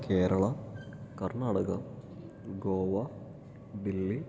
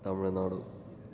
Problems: low volume